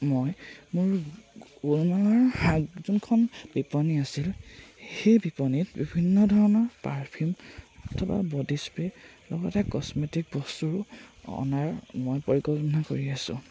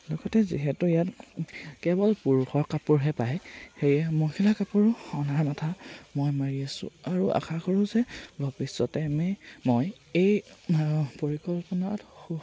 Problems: constant background noise, background conversations at intervals